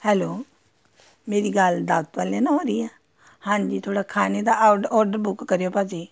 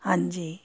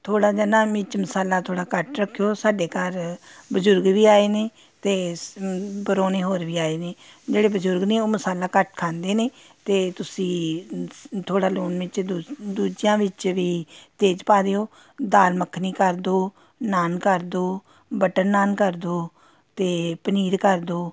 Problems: background sounds at intervals